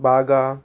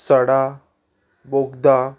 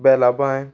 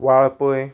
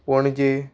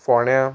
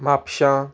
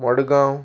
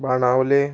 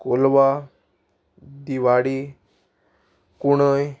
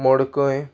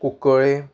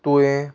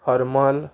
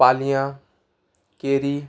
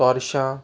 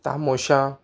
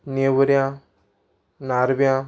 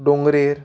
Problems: none marked